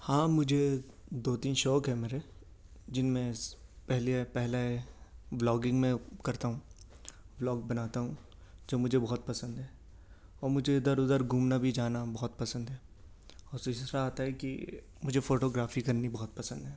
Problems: none marked